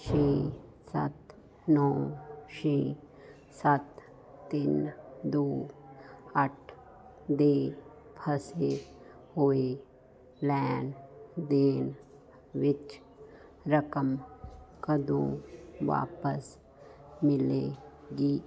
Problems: constant background noise